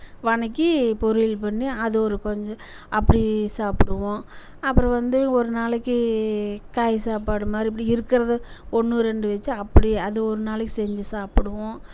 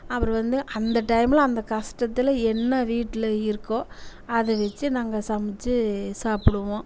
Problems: none marked